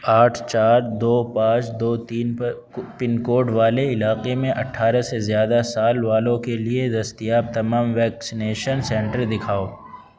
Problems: constant background noise